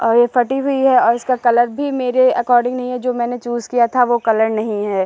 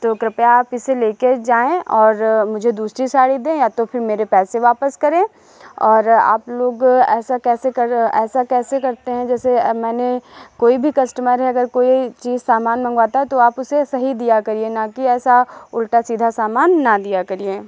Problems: background sounds at intervals, echo